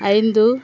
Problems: constant background noise